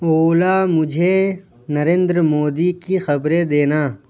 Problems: none marked